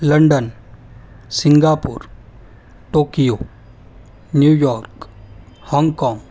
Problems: background sounds at intervals